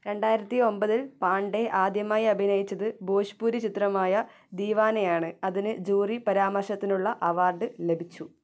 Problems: none marked